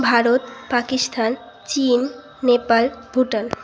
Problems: none marked